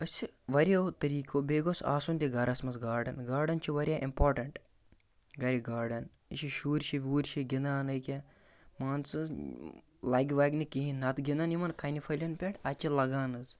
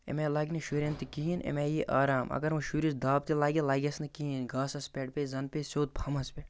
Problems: background sounds at intervals